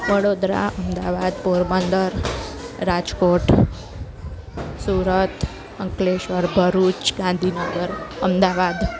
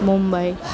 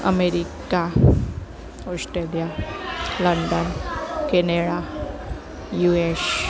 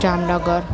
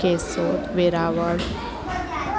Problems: constant background noise